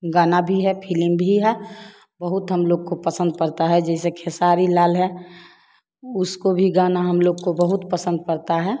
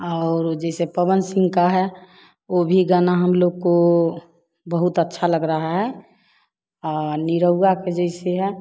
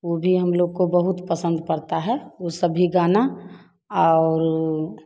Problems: background sounds at intervals